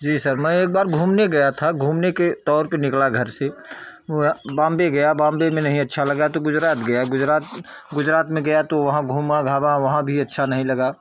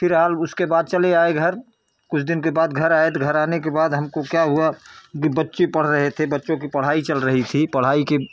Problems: none marked